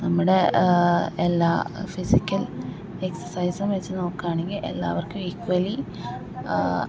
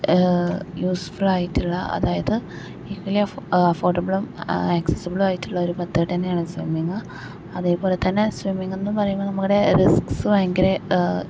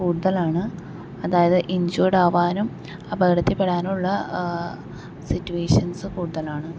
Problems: background sounds at intervals